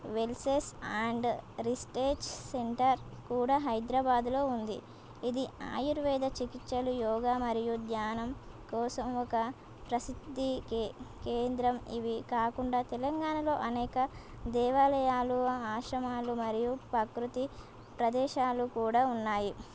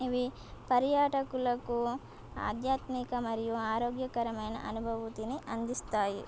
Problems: none marked